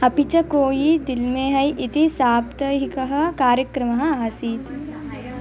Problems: continuous background conversations